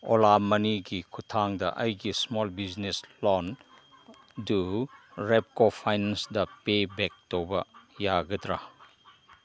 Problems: background sounds at intervals